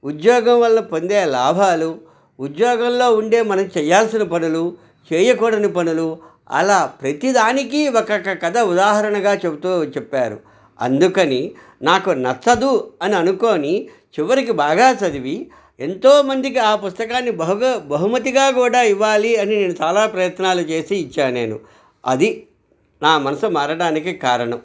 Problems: none marked